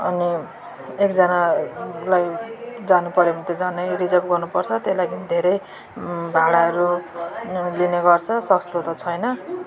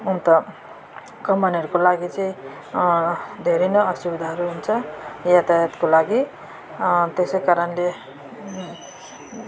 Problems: continuous background conversations